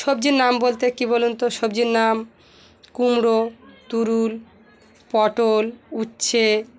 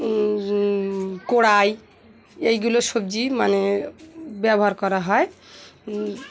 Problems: constant background noise, continuous background conversations